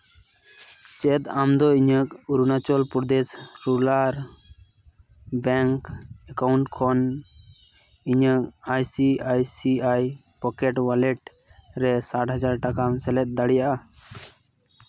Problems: none marked